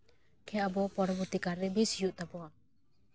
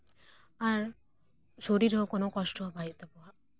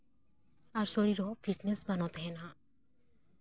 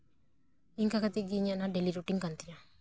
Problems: background sounds at intervals